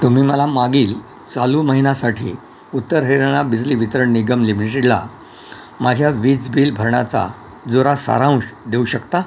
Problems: constant background noise